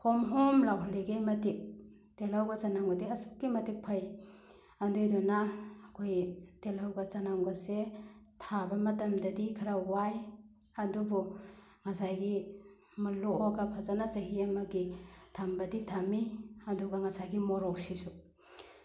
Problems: none marked